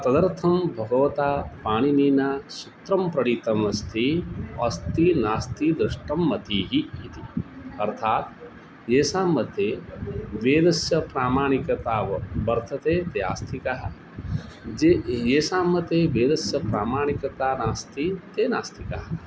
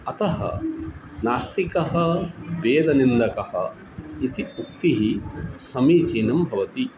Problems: none marked